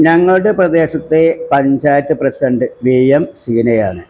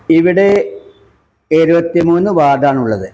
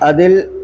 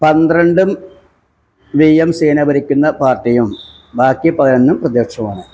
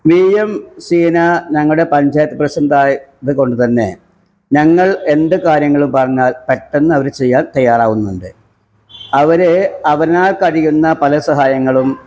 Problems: none marked